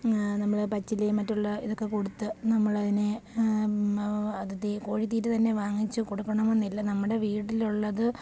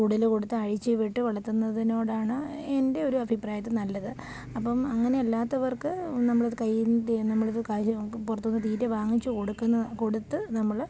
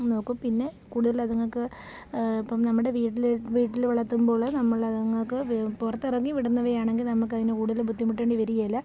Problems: none marked